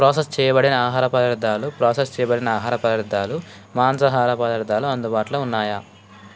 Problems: constant background noise